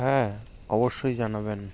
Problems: constant background noise